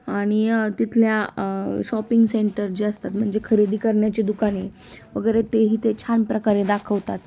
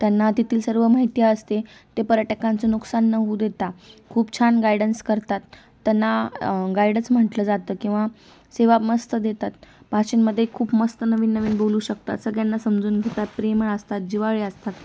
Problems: background sounds at intervals